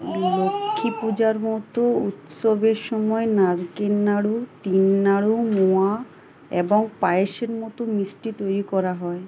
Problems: constant background noise, background conversations at intervals